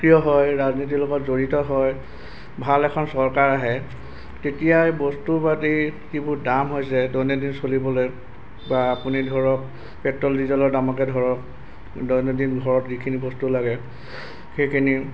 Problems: background sounds at intervals